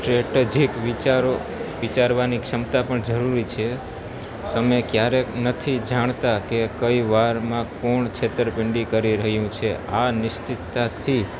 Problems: constant background noise